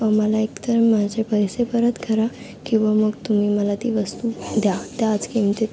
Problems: constant background noise, background conversations at intervals